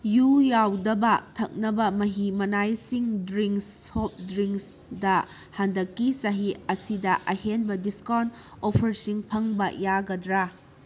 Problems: constant background noise